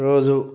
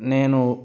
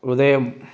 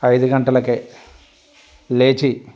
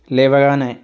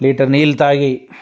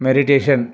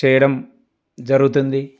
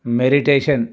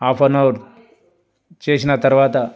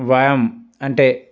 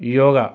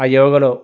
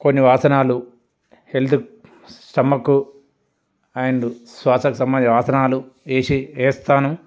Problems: background sounds at intervals, background conversations at intervals